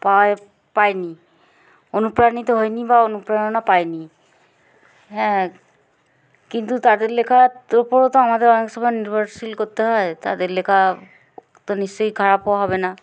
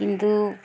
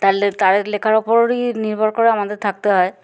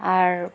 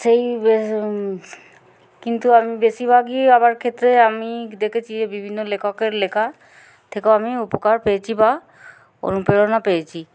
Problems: background sounds at intervals